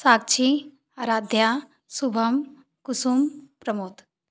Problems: none marked